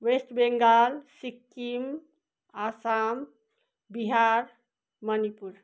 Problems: none marked